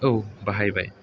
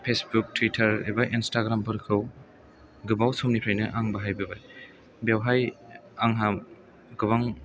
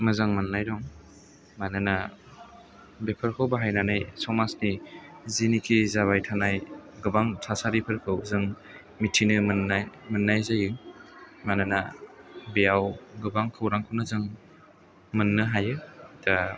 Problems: none marked